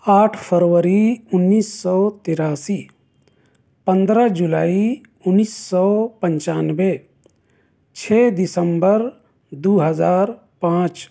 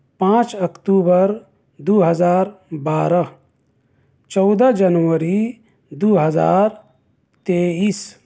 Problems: none marked